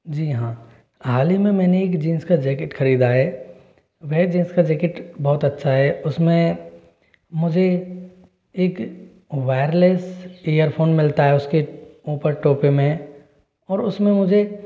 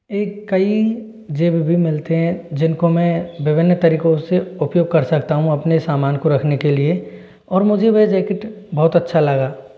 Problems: constant background noise